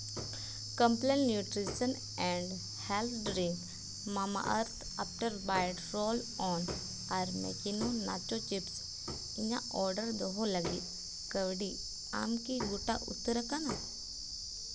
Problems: constant background noise